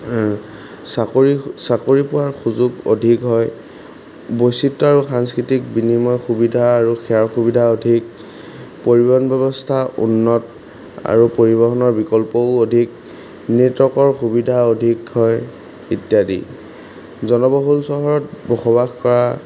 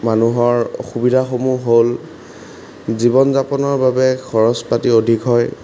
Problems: background sounds at intervals